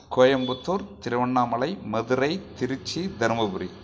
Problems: none marked